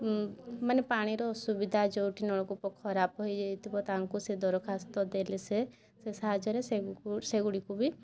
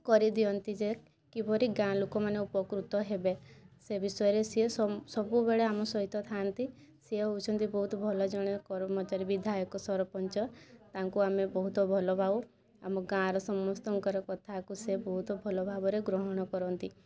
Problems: constant background noise